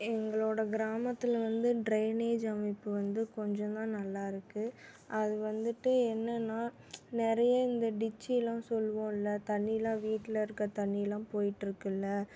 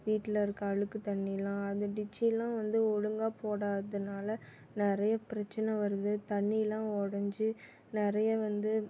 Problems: background sounds at intervals